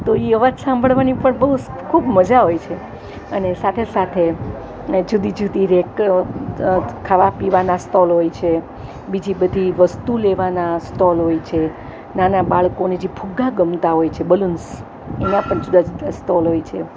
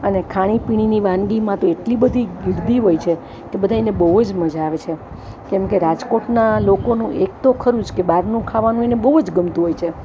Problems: constant background noise